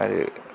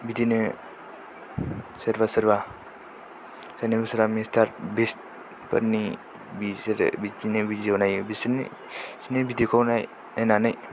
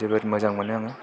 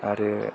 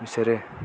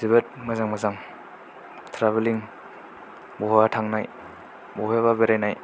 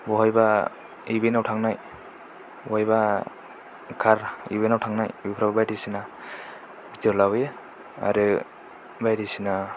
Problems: low volume